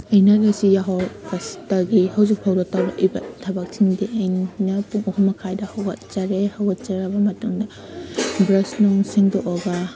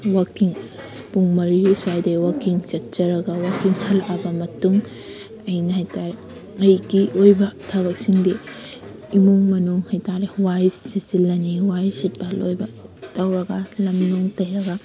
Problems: background sounds at intervals